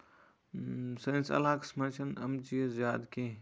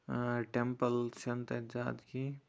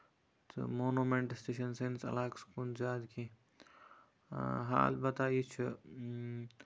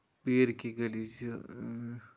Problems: constant background noise